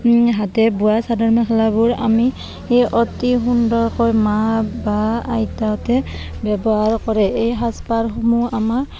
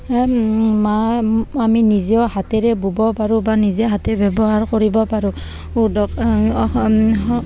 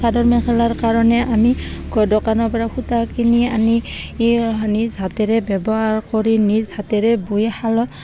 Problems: constant background noise, continuous background conversations